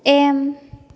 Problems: none marked